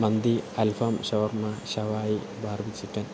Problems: constant background noise, low volume